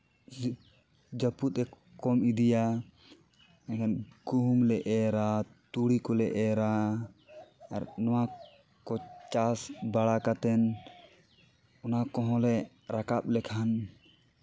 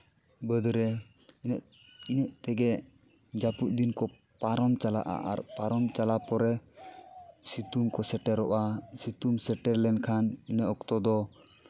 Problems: none marked